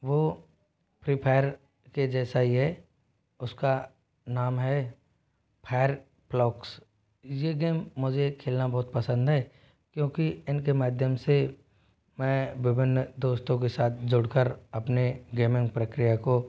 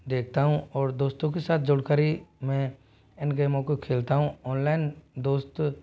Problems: background sounds at intervals, low volume